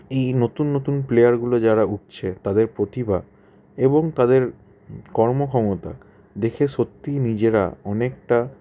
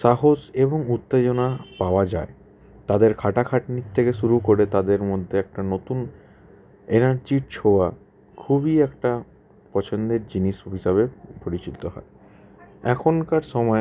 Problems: constant background noise, background conversations at intervals